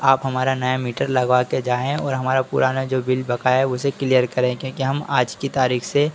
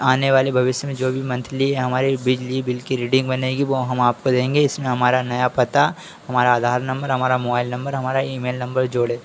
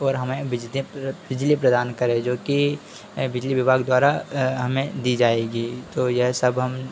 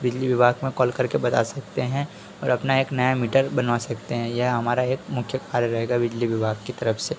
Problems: none marked